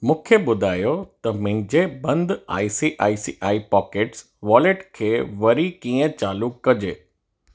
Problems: none marked